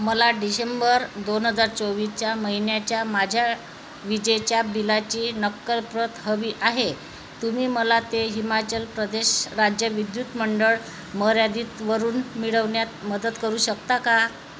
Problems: constant background noise, background conversations at intervals